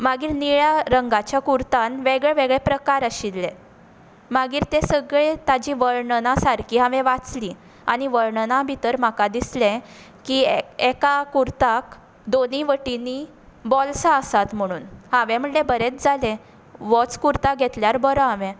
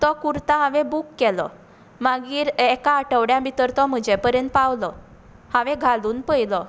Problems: constant background noise